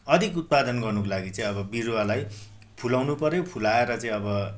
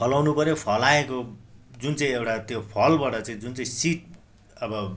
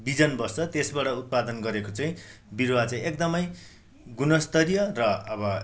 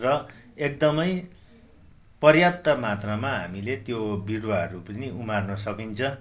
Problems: constant background noise